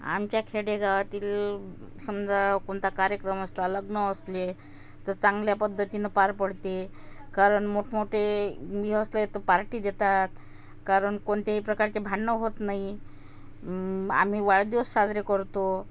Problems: constant background noise, background conversations at intervals